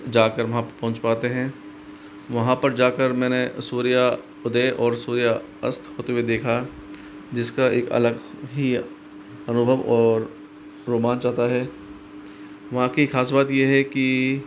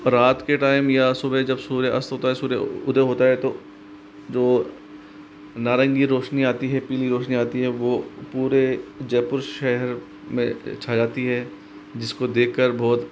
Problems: constant background noise